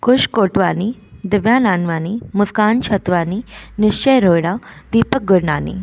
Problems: constant background noise